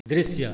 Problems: none marked